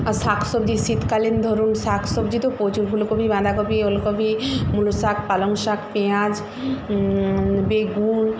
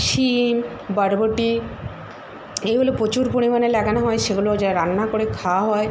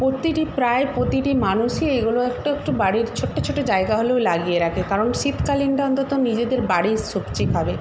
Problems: constant background noise